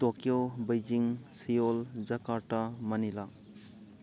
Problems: continuous background conversations